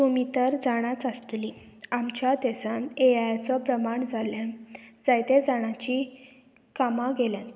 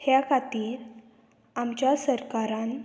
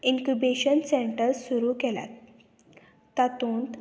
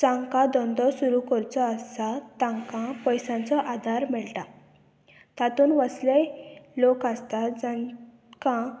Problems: none marked